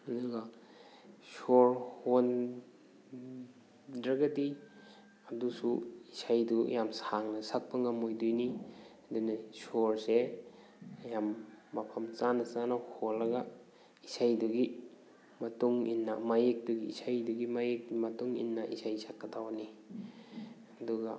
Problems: background sounds at intervals